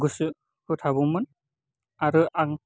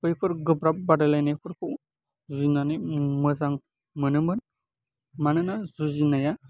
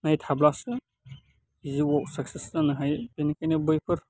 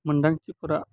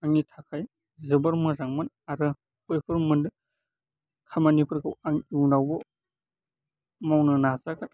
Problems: none marked